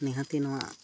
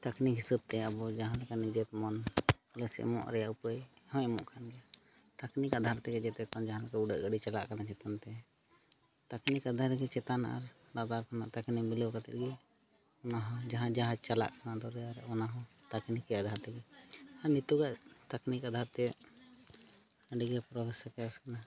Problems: background conversations at intervals